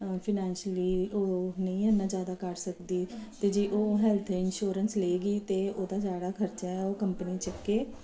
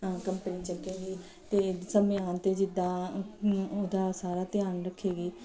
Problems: none marked